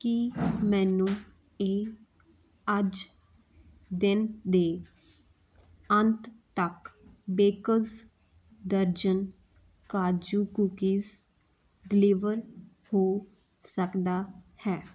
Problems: none marked